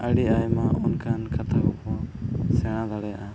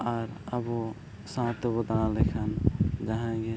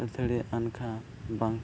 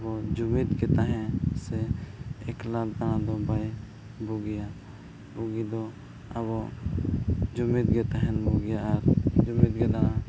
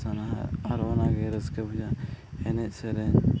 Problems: background sounds at intervals, low volume